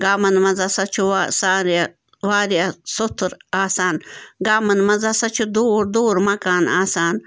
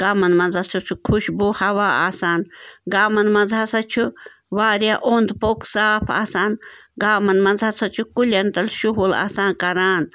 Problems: none marked